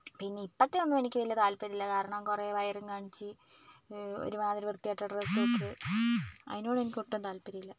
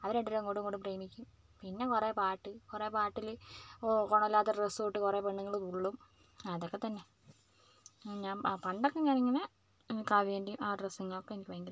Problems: low volume